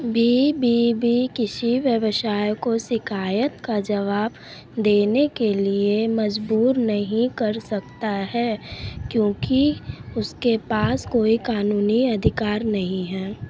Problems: constant background noise